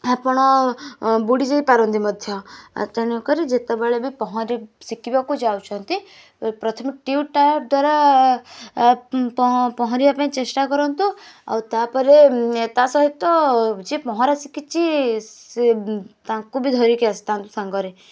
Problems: none marked